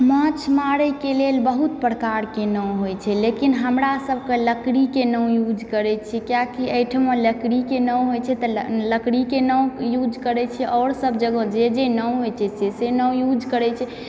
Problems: background sounds at intervals, background conversations at intervals